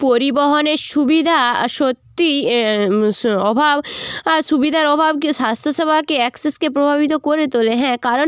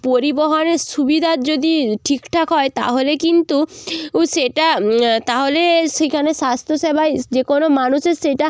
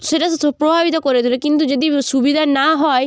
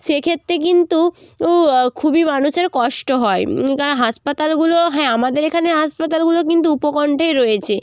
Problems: none marked